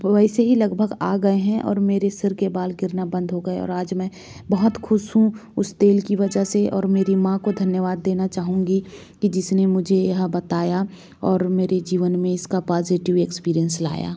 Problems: background sounds at intervals